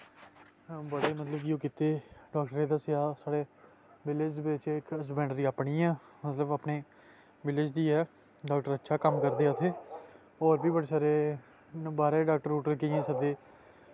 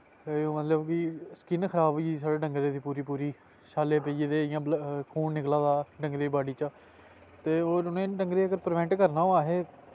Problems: constant background noise